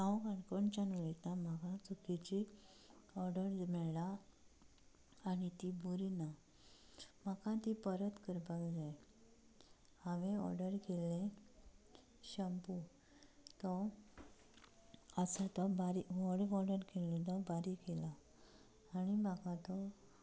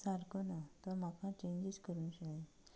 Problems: low volume